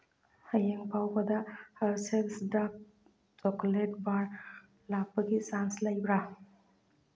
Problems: background sounds at intervals, low volume